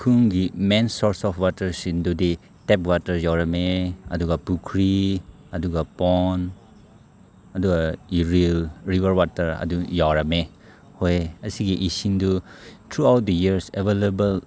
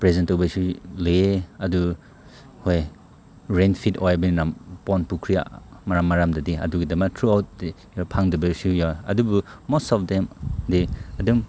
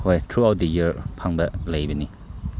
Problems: none marked